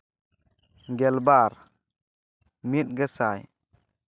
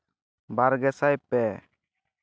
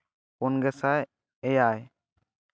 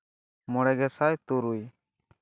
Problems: none marked